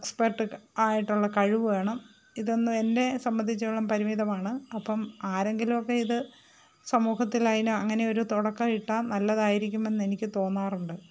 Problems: background sounds at intervals